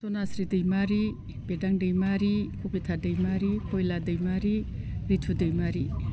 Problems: constant background noise